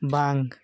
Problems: none marked